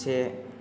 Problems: none marked